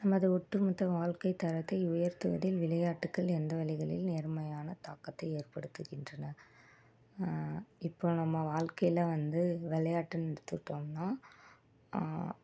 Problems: low volume